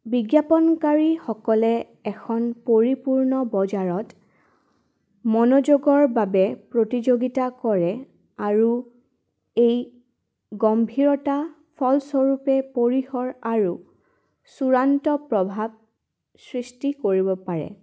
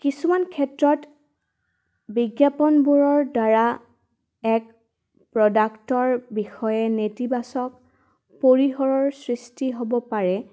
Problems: none marked